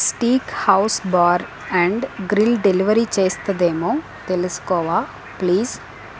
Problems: constant background noise